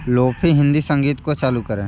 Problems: none marked